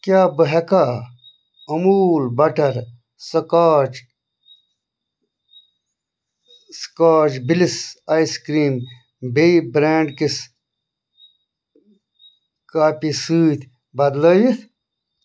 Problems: none marked